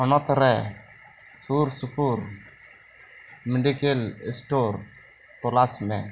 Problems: constant background noise